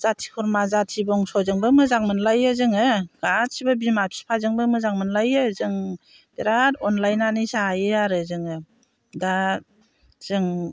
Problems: constant background noise